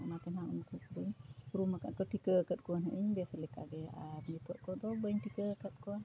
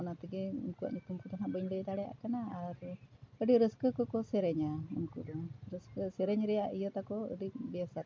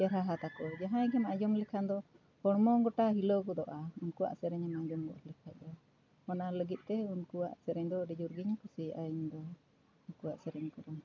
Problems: none marked